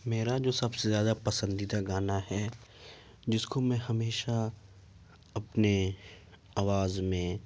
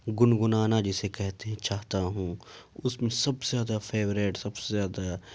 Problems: none marked